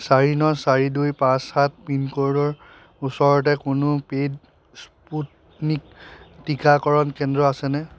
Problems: constant background noise